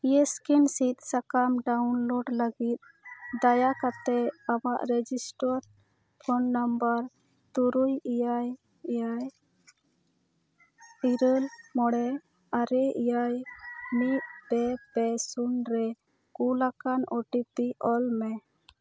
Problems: none marked